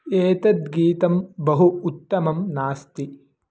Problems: none marked